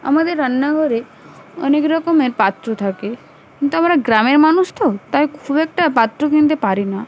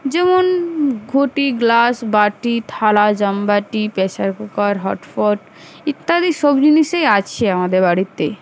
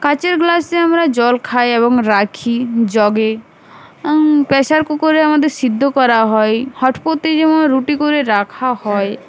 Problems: none marked